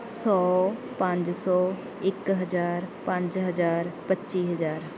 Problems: background sounds at intervals